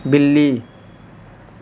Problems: constant background noise